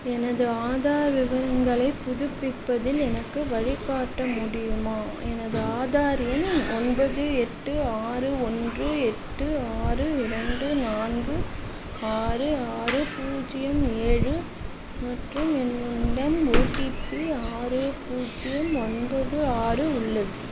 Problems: constant background noise, background conversations at intervals